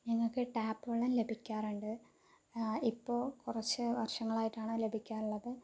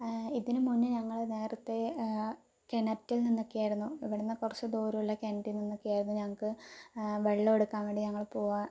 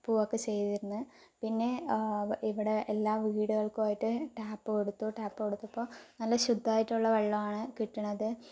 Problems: low volume